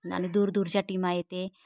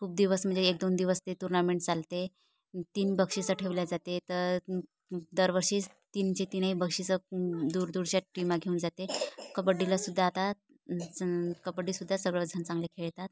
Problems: background sounds at intervals